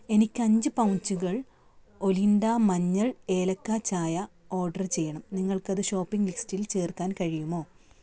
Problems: background sounds at intervals